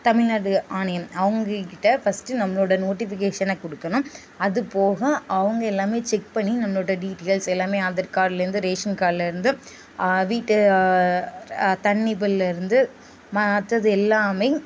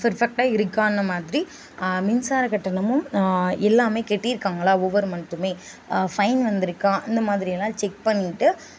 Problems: constant background noise, background conversations at intervals